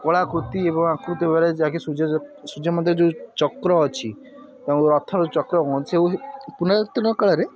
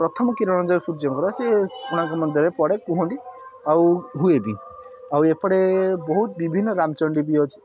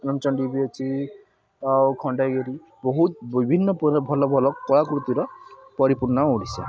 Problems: constant background noise, continuous background conversations